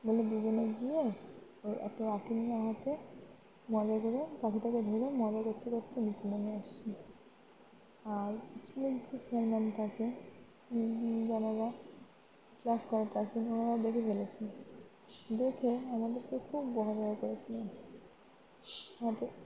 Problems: constant background noise, background conversations at intervals